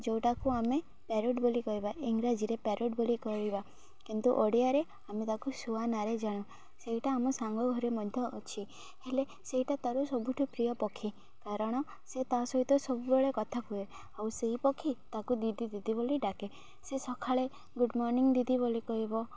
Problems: constant background noise